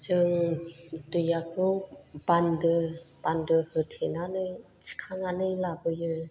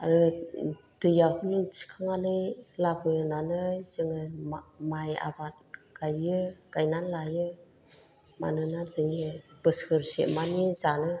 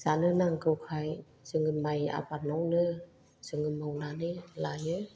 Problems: low volume